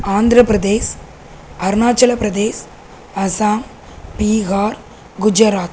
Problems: constant background noise